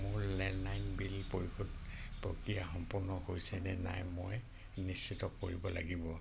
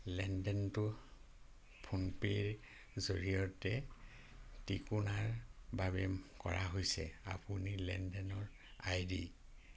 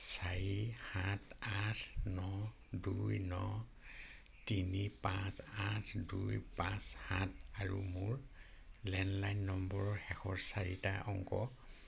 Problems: constant background noise